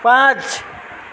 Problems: background sounds at intervals, low volume